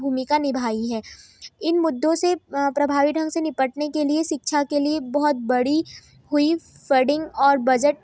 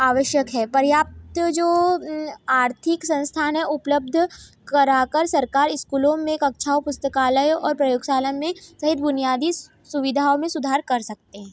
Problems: none marked